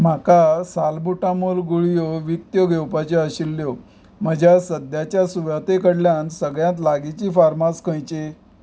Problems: background sounds at intervals